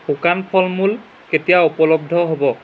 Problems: background sounds at intervals